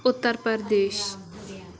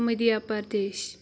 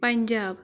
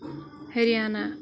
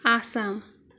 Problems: constant background noise